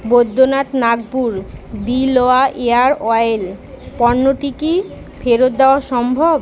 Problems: constant background noise